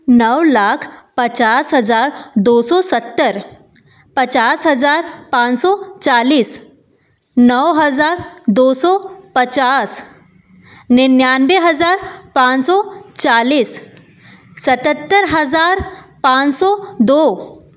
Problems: constant background noise